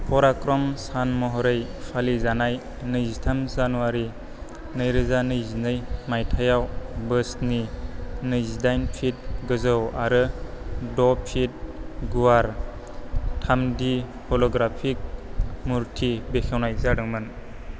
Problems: none marked